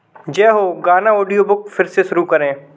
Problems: background sounds at intervals